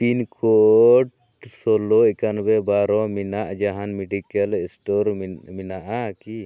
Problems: none marked